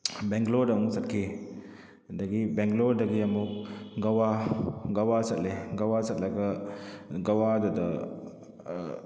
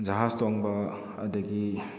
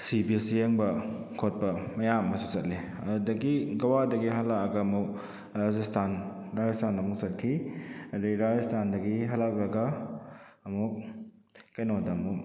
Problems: none marked